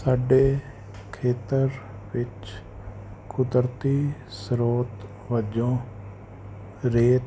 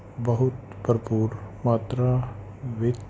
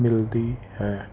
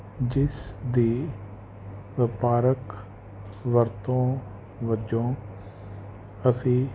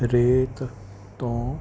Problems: none marked